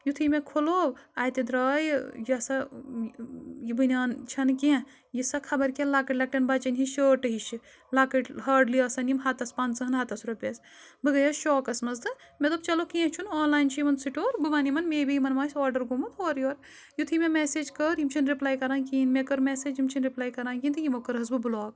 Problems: background sounds at intervals